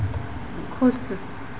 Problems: constant background noise